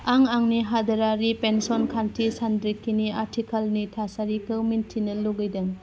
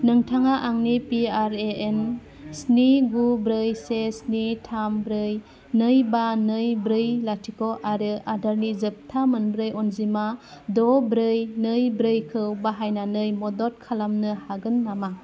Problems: none marked